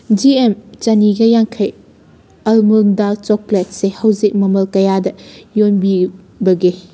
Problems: background sounds at intervals